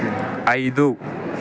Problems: constant background noise